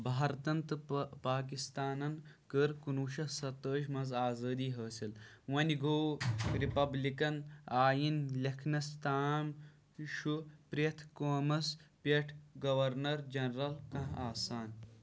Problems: low volume